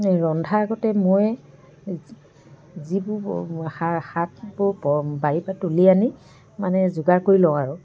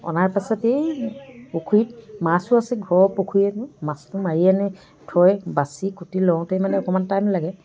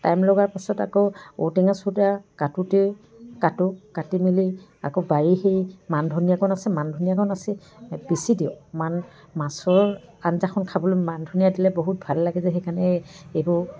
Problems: continuous background conversations